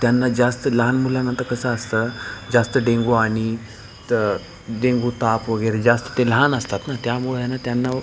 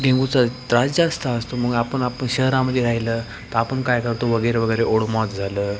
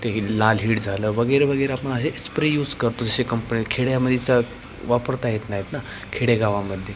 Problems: none marked